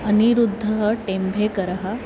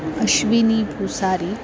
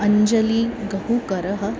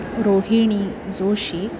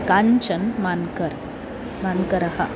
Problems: background sounds at intervals